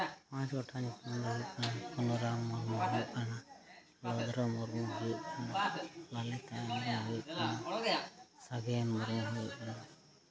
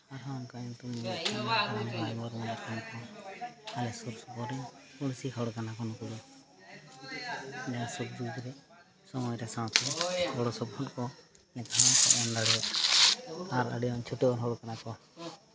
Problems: continuous background conversations, low volume